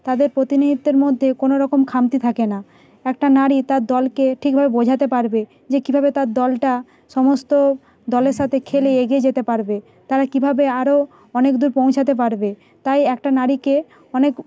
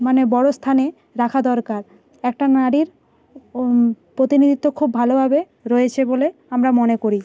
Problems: background sounds at intervals